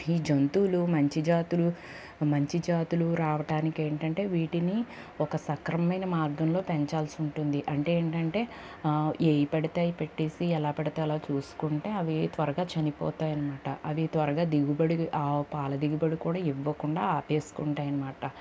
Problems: none marked